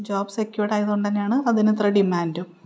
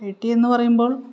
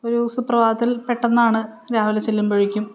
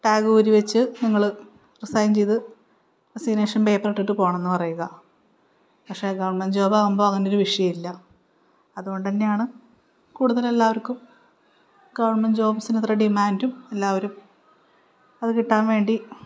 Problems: none marked